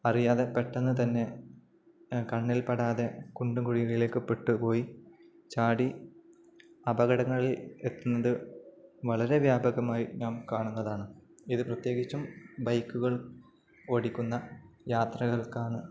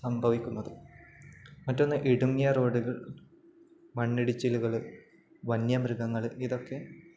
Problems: none marked